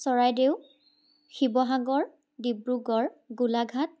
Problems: constant background noise